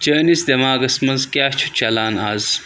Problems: constant background noise